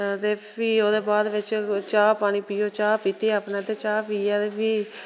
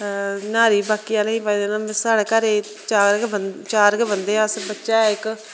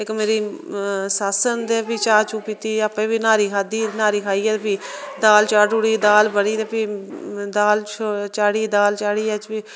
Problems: constant background noise